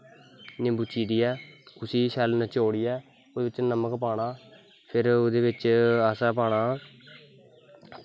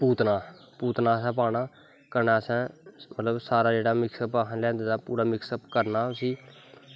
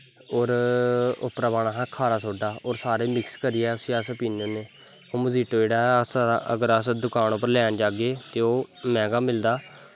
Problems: background sounds at intervals